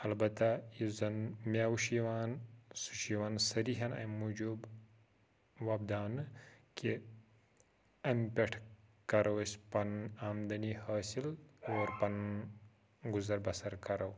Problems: background sounds at intervals, low volume